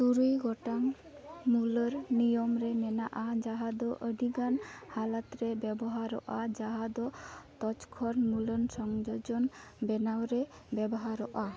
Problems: constant background noise